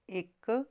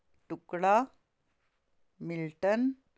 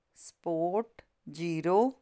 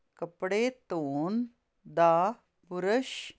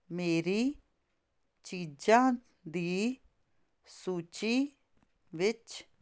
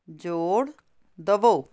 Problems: constant background noise